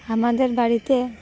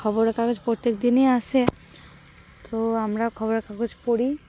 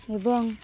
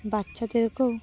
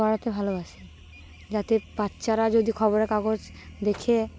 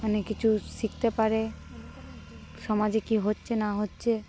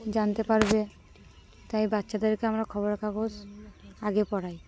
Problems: constant background noise